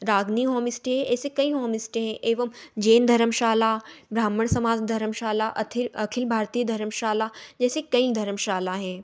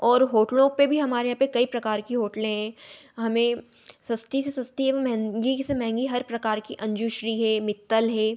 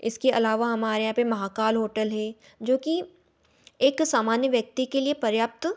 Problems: none marked